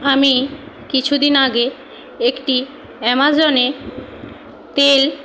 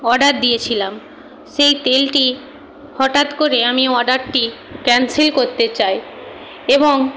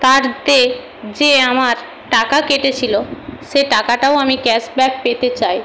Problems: none marked